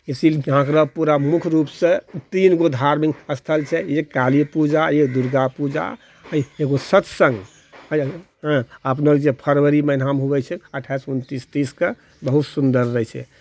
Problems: none marked